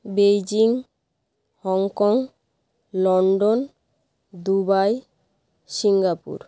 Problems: none marked